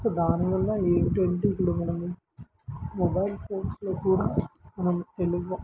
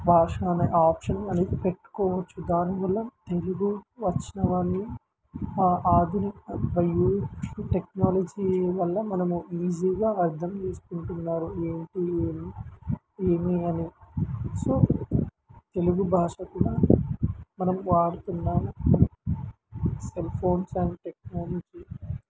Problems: constant background noise